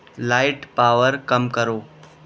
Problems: background sounds at intervals